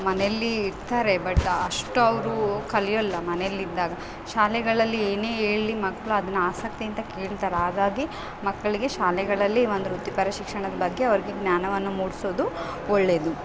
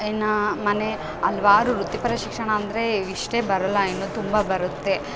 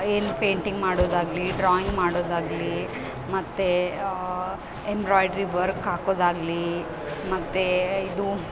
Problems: background sounds at intervals